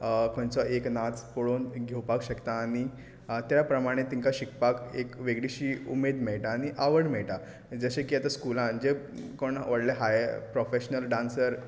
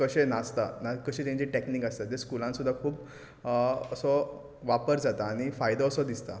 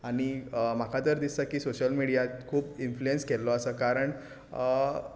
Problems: background sounds at intervals